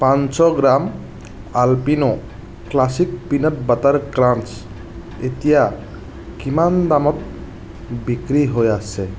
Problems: constant background noise